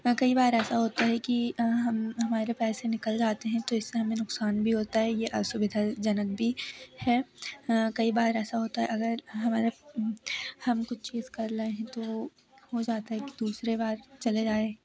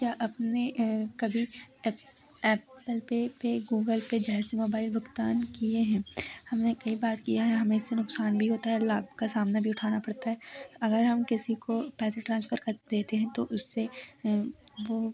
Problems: none marked